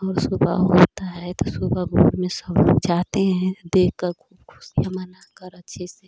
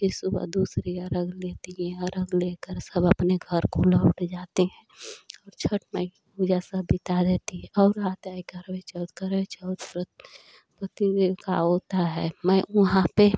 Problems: none marked